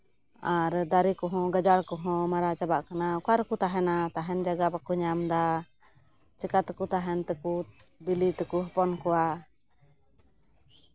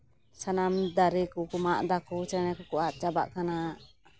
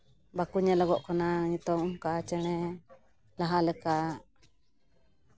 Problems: background sounds at intervals